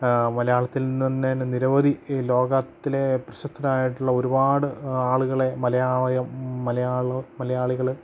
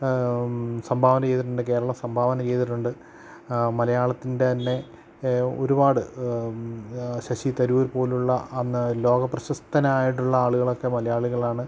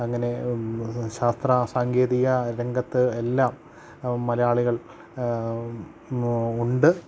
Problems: low volume